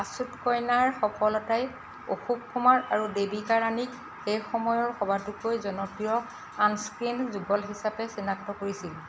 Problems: constant background noise